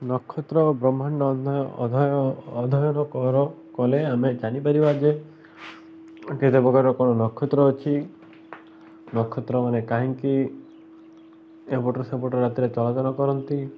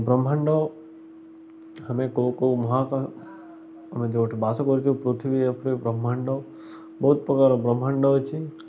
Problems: constant background noise, continuous background conversations